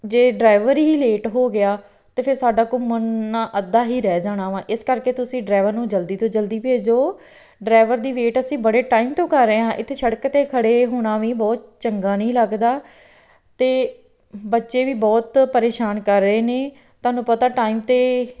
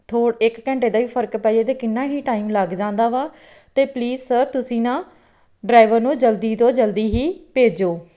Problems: background sounds at intervals